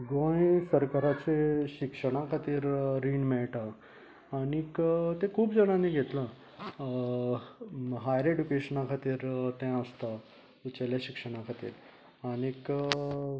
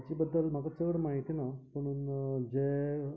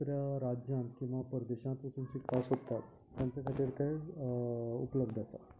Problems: background conversations at intervals